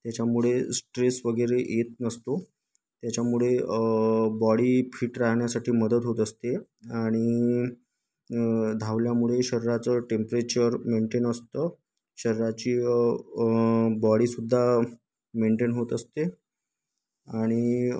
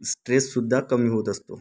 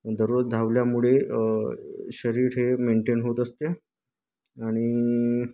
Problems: none marked